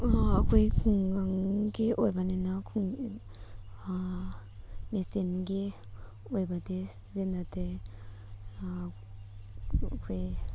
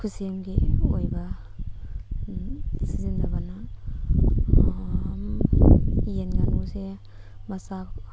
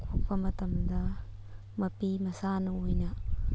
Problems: constant background noise